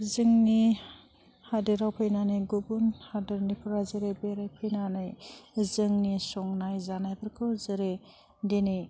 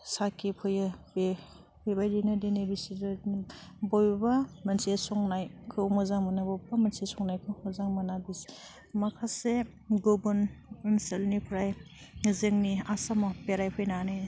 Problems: none marked